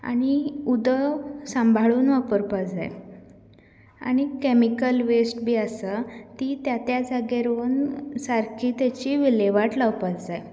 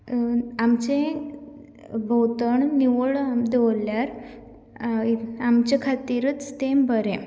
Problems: none marked